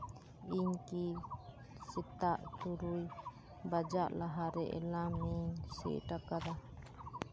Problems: constant background noise